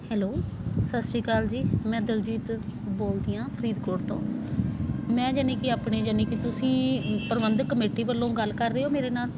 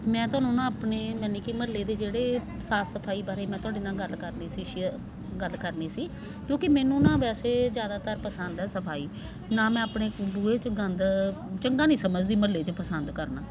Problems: constant background noise